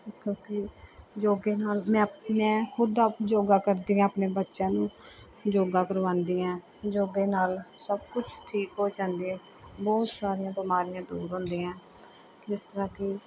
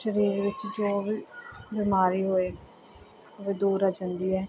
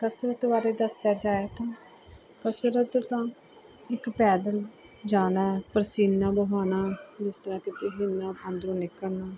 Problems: background sounds at intervals, background conversations at intervals